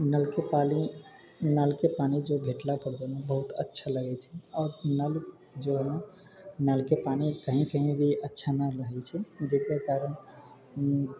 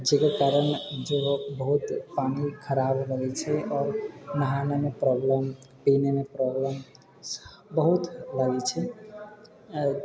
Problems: background sounds at intervals